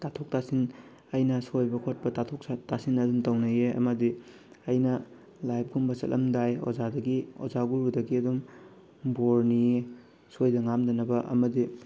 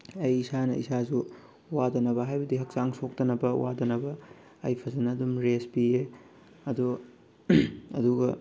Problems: constant background noise